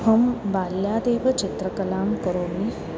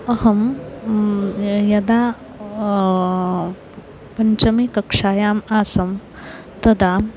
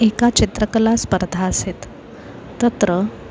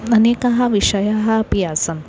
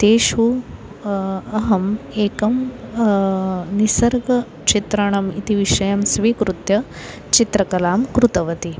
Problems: constant background noise, continuous background conversations